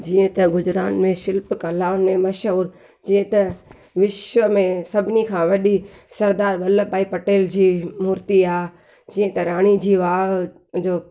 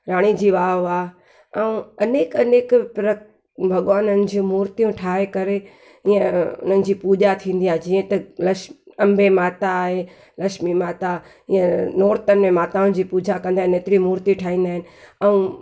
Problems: none marked